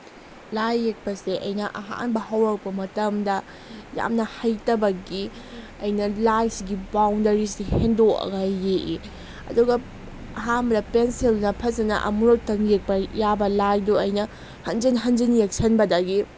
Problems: constant background noise